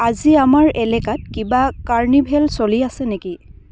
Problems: background sounds at intervals